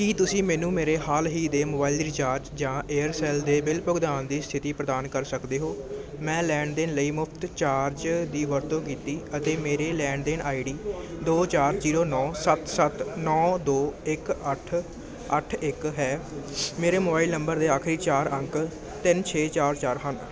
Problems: constant background noise